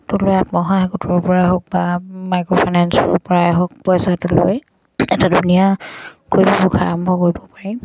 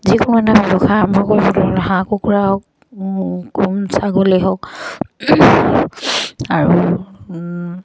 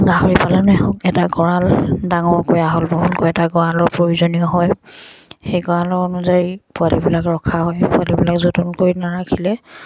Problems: none marked